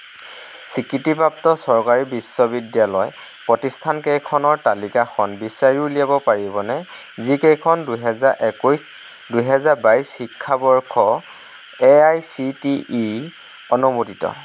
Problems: constant background noise